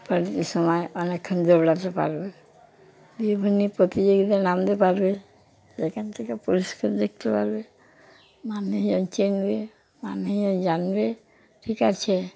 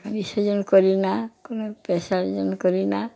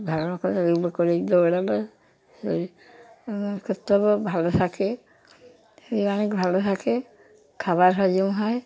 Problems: constant background noise